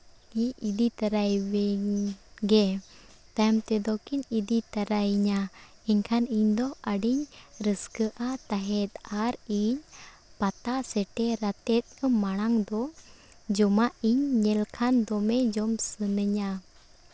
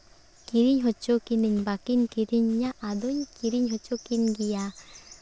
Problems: none marked